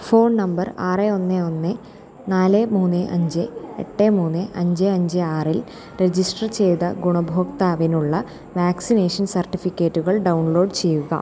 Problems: constant background noise, low volume